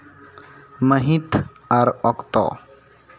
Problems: none marked